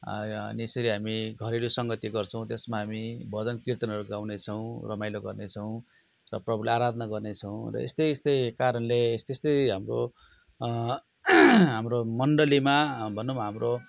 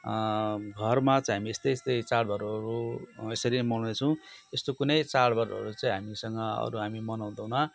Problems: background sounds at intervals